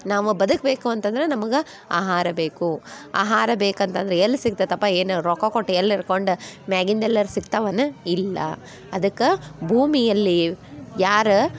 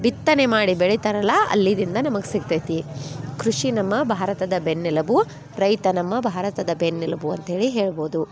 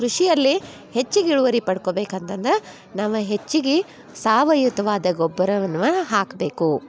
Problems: background sounds at intervals